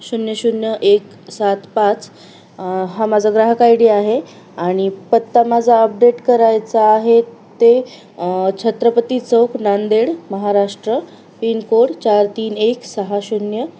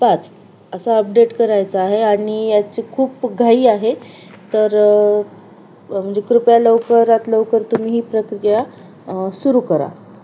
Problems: constant background noise